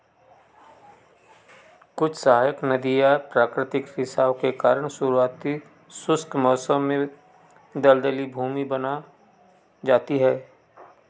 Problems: background sounds at intervals